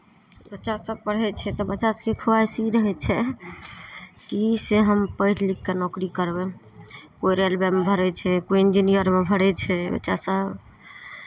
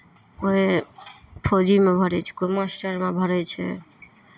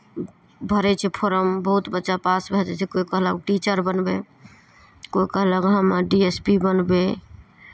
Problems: none marked